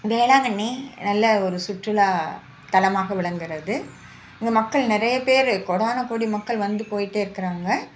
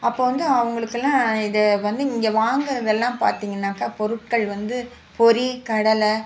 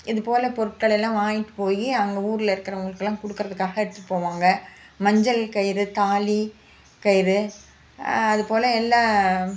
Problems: none marked